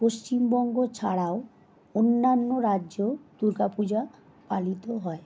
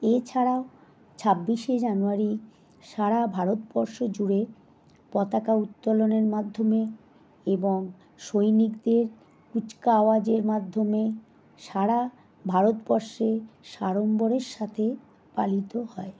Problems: background sounds at intervals